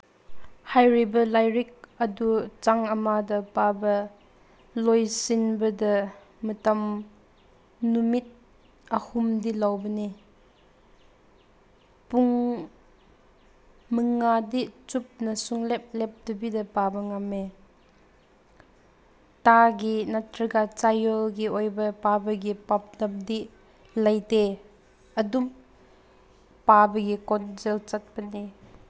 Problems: background sounds at intervals